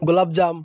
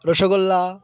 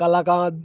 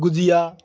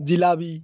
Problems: none marked